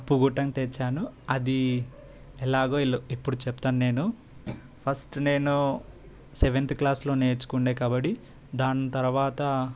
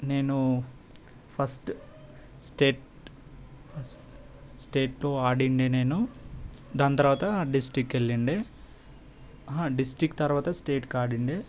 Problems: background sounds at intervals